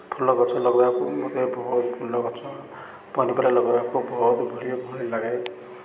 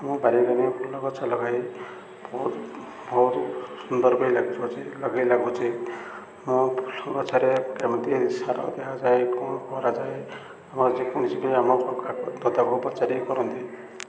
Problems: constant background noise